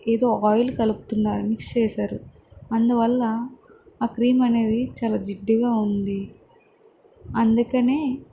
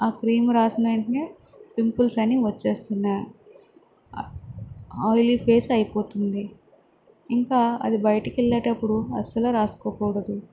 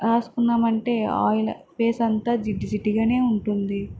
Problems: constant background noise